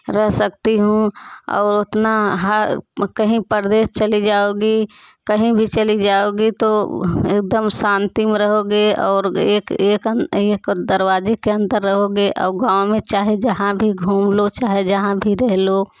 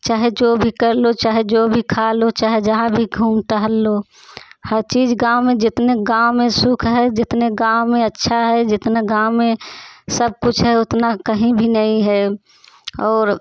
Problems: none marked